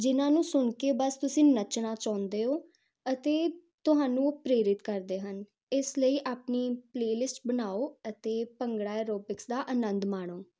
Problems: constant background noise